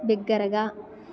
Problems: continuous background conversations